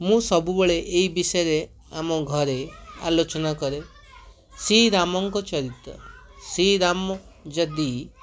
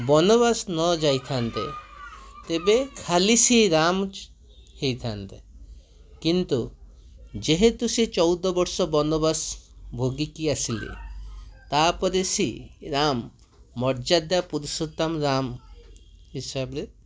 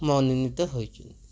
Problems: constant background noise, continuous background conversations